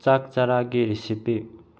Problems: low volume